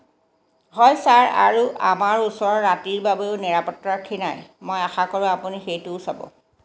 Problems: constant background noise